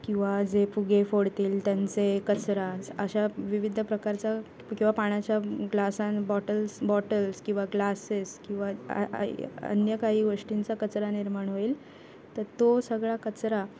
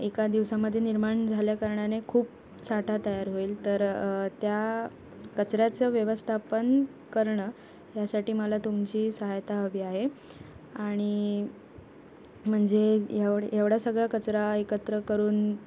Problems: background sounds at intervals